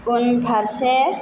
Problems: constant background noise